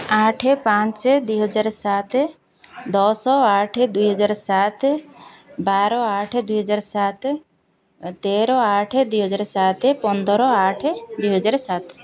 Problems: continuous background conversations